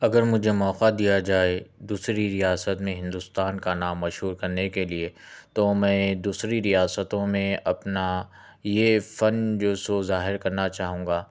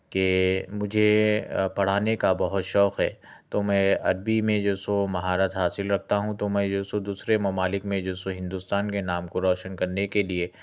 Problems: none marked